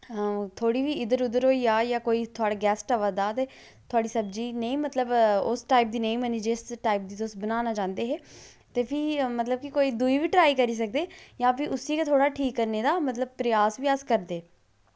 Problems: none marked